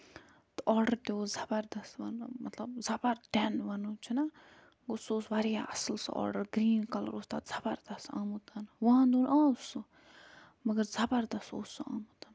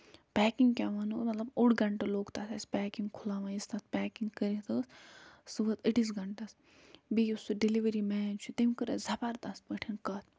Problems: none marked